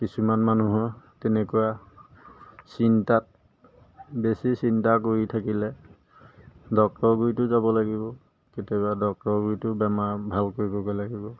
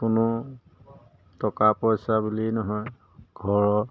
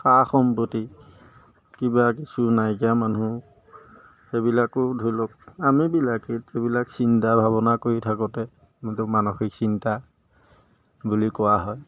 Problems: background sounds at intervals